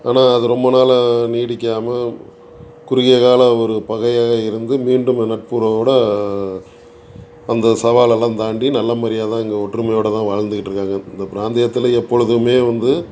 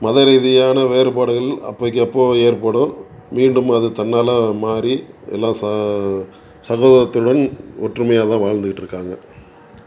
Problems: background conversations at intervals